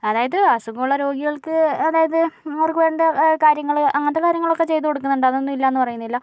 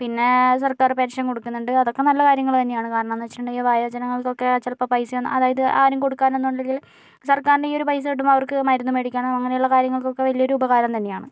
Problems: none marked